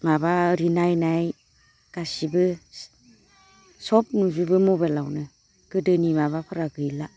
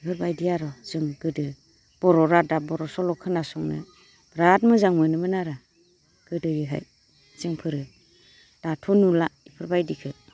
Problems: constant background noise